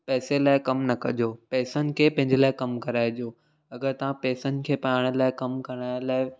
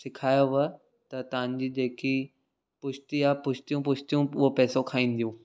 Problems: none marked